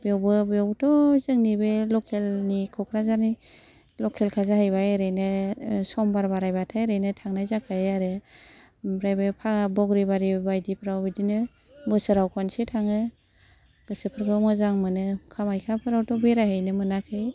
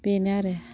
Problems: none marked